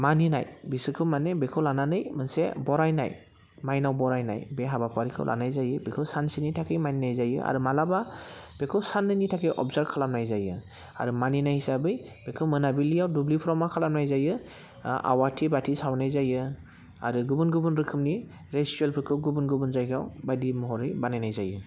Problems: constant background noise